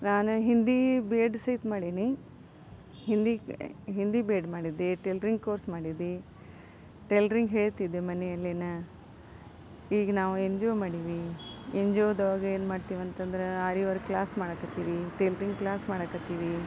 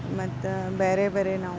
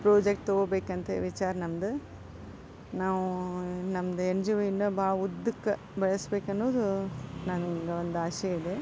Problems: background sounds at intervals, background conversations at intervals